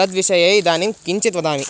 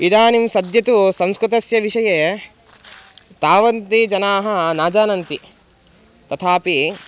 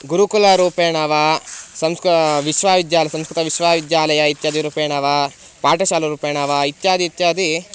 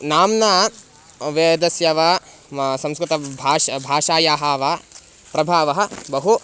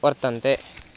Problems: constant background noise